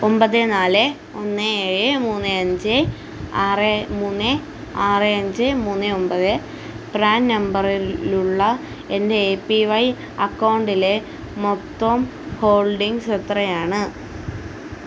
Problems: constant background noise